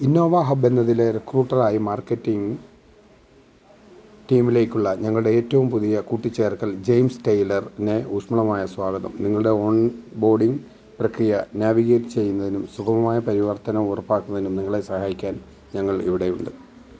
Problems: background sounds at intervals